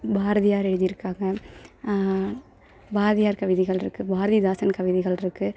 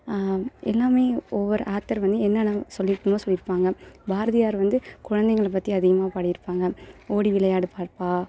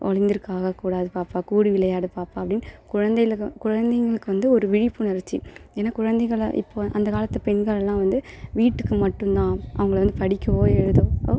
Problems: none marked